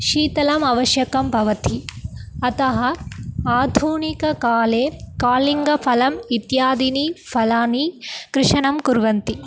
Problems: background sounds at intervals